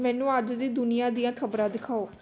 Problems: background sounds at intervals